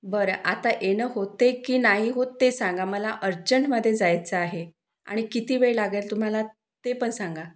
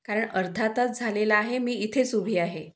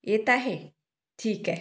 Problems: none marked